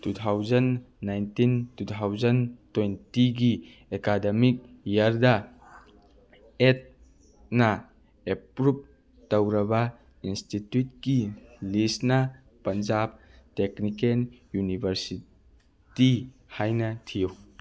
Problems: background sounds at intervals